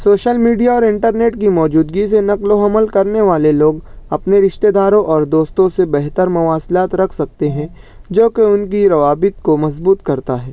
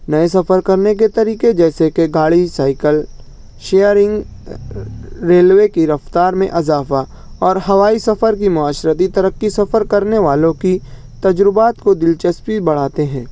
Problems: none marked